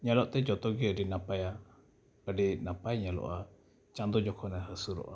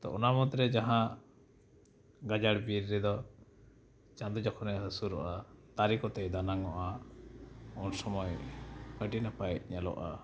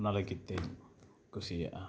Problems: none marked